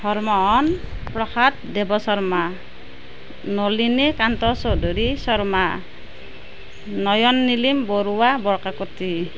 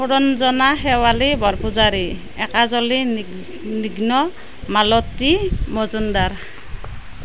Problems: none marked